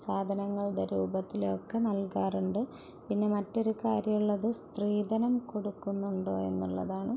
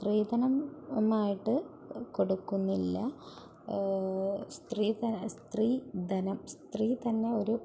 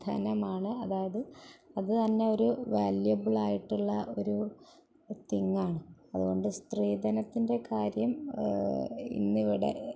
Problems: background sounds at intervals